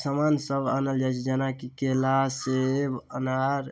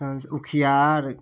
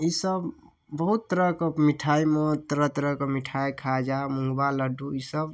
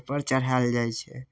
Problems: none marked